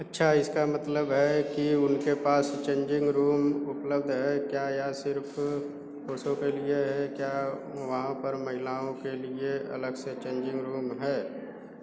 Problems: none marked